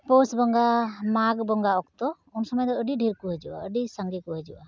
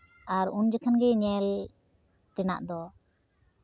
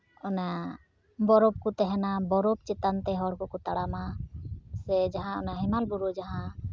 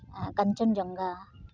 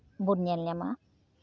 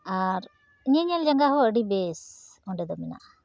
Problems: background sounds at intervals